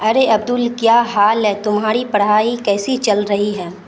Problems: constant background noise